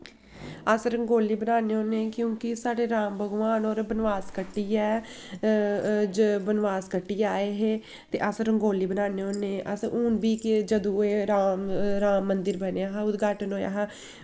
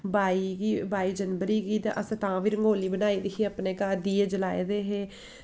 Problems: constant background noise